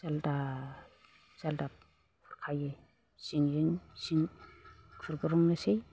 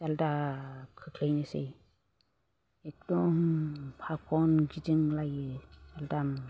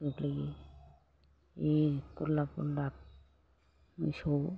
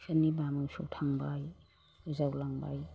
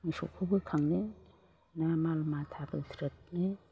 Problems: low volume